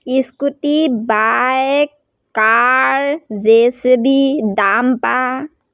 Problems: none marked